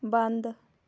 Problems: none marked